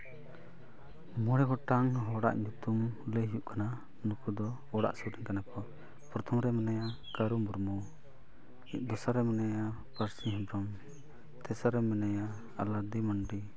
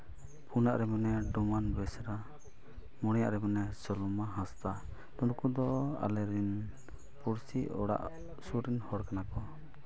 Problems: none marked